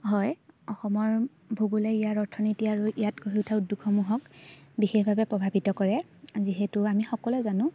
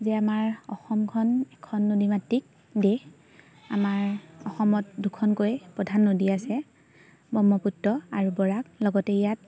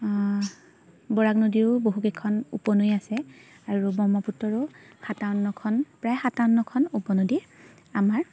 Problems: none marked